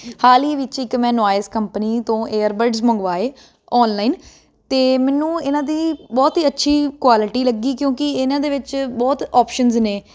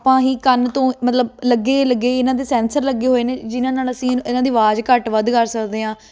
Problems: constant background noise